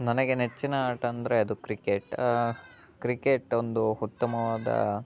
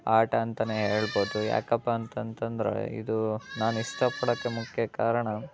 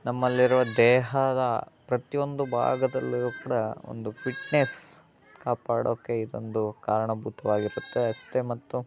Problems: constant background noise